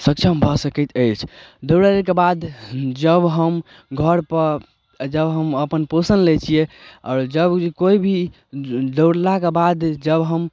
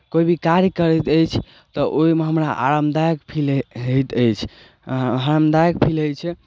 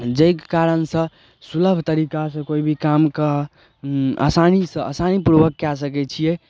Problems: none marked